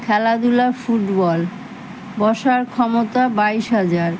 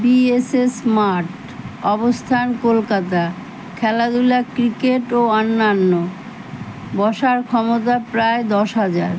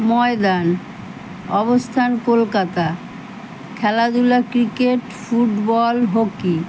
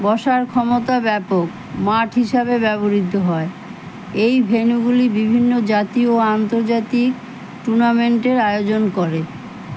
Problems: none marked